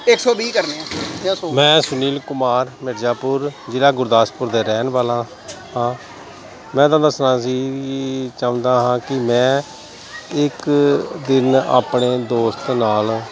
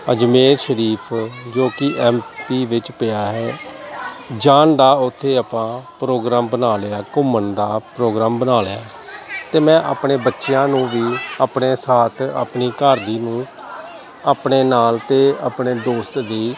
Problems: constant background noise, continuous background conversations